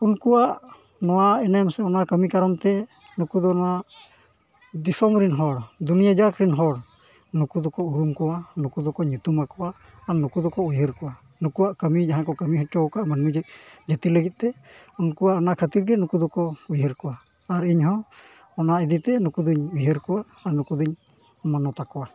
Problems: none marked